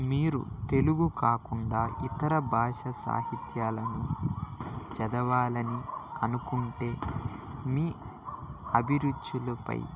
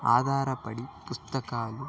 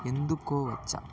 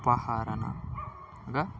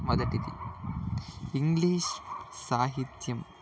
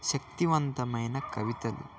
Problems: constant background noise, continuous background conversations